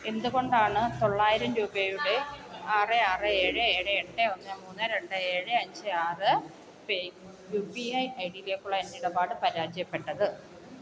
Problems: constant background noise, low volume